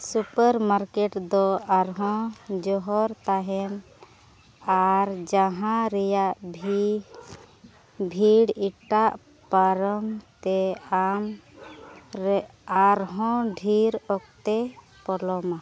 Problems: none marked